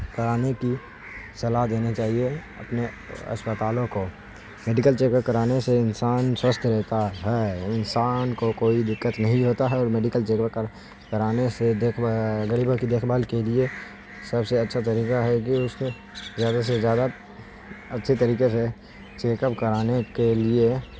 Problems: constant background noise